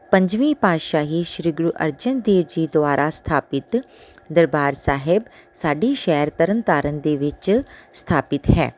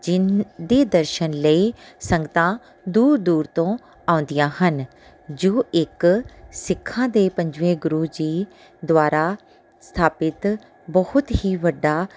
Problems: background sounds at intervals